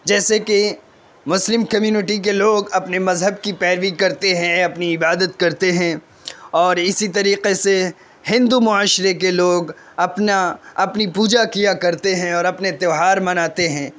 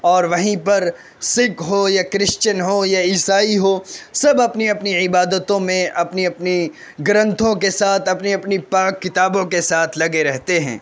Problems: constant background noise